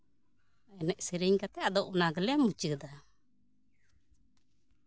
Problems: background sounds at intervals